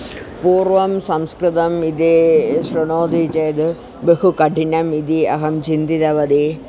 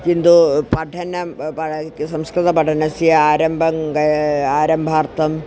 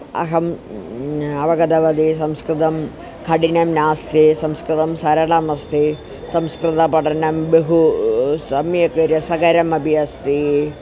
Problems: constant background noise